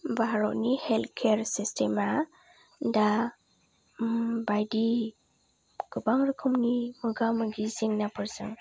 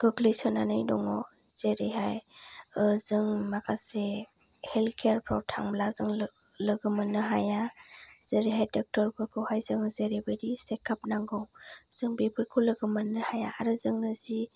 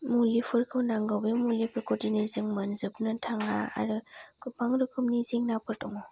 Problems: low volume